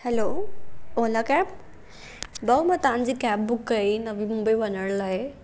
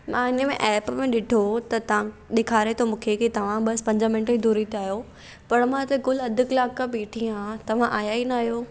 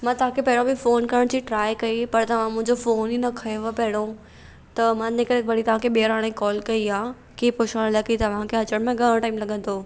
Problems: none marked